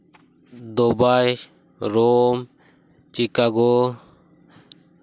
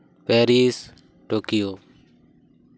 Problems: constant background noise